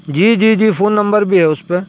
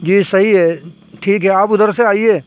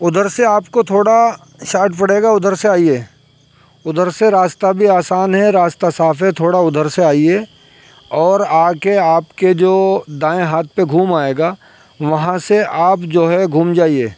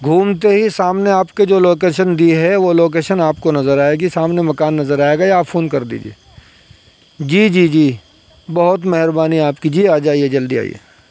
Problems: constant background noise